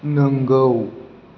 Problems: constant background noise